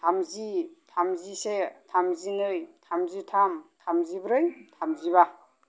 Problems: low volume